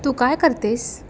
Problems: none marked